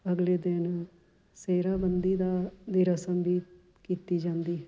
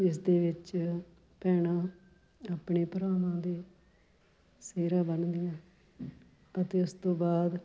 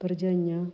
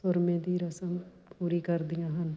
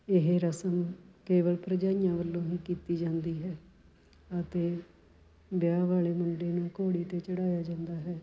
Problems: background sounds at intervals